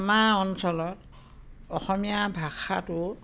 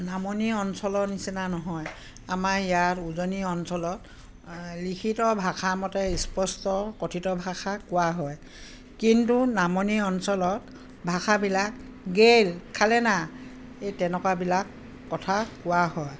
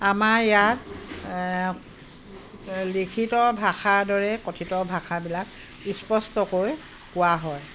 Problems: none marked